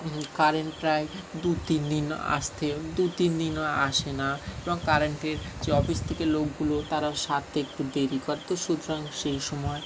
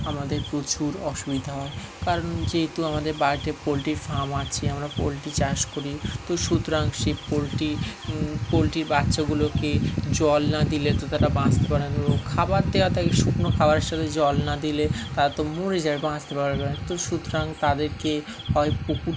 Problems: none marked